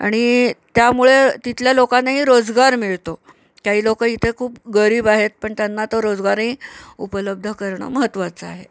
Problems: constant background noise